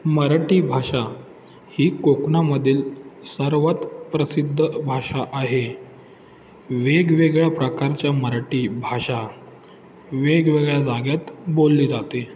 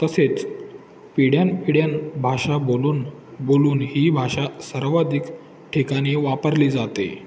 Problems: constant background noise, background conversations at intervals